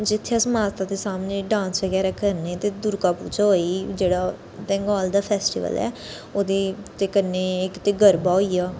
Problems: constant background noise